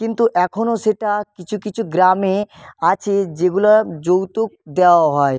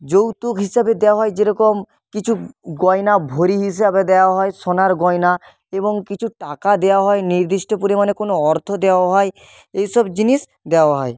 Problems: constant background noise